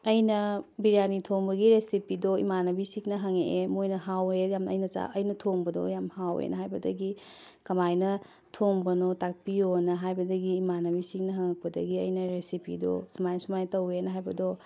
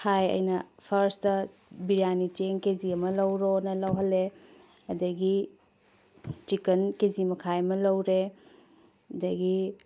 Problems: background sounds at intervals